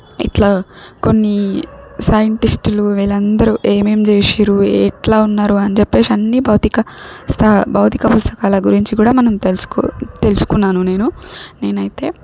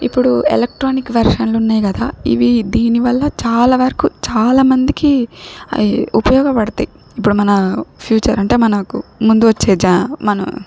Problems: background sounds at intervals